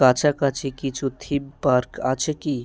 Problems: constant background noise, continuous background conversations